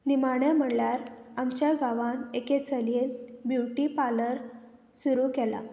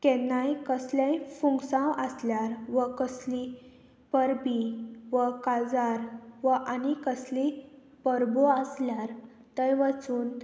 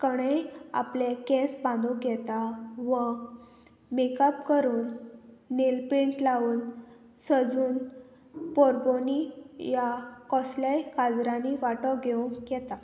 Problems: none marked